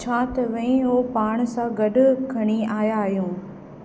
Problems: constant background noise, echo